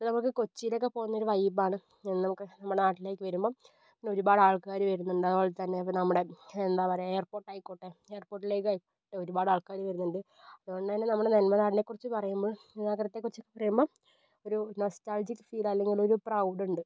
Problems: low volume